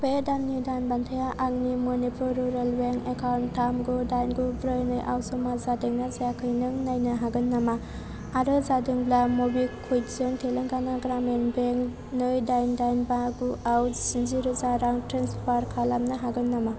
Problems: constant background noise